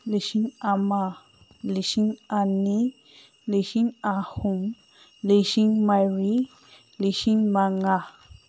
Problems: none marked